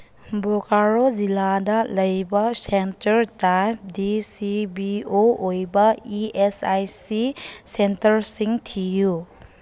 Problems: none marked